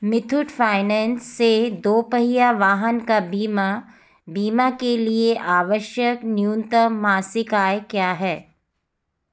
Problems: background sounds at intervals